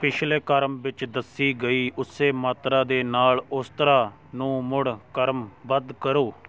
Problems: background conversations at intervals